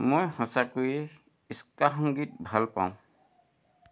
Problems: none marked